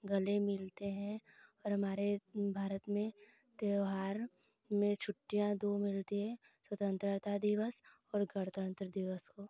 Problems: constant background noise